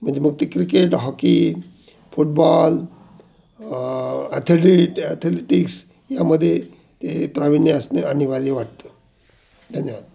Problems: background sounds at intervals